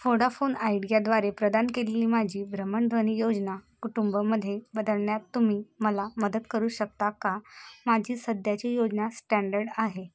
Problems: constant background noise